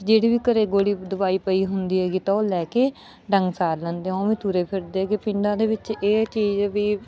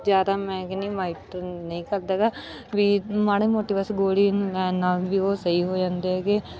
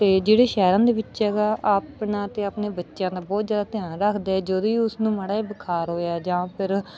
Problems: background sounds at intervals